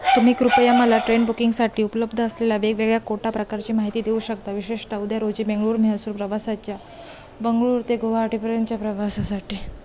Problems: constant background noise, continuous background conversations